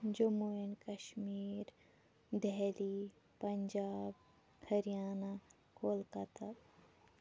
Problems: background sounds at intervals, low volume